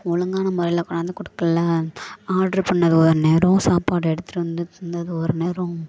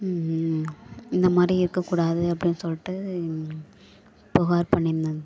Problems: none marked